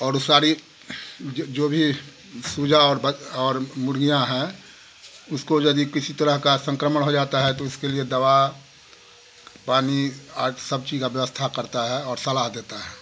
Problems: constant background noise